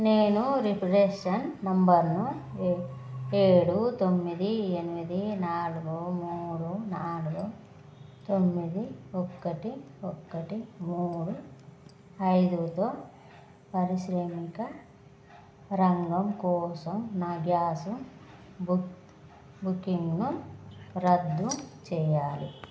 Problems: none marked